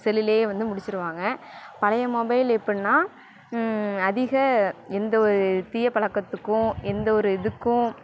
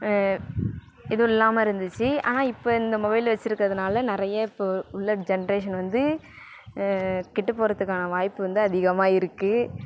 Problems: background sounds at intervals